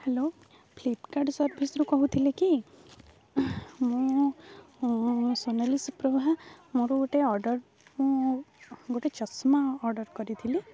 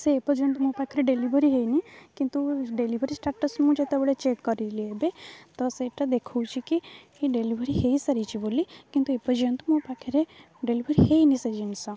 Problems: low volume